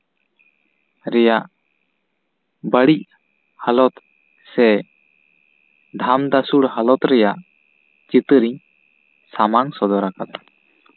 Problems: none marked